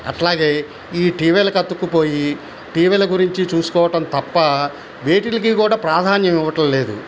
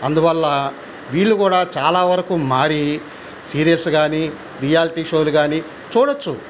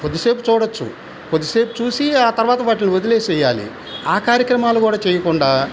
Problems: constant background noise